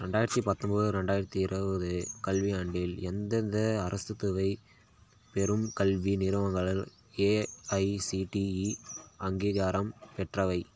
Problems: constant background noise